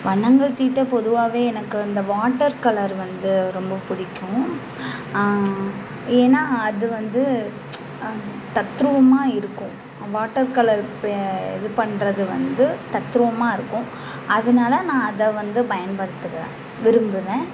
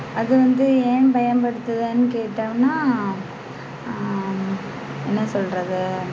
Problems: constant background noise